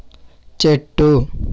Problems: constant background noise